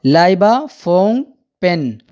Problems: background sounds at intervals